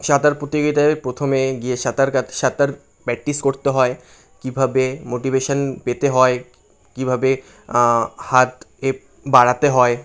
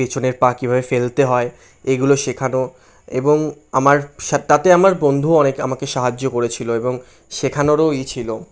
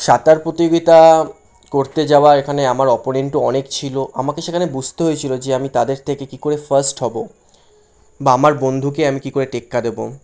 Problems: constant background noise